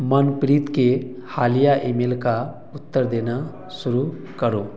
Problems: none marked